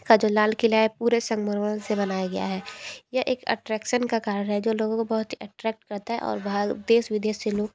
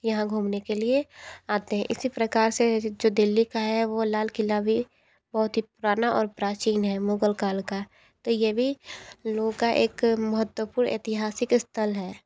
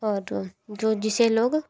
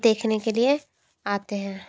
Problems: constant background noise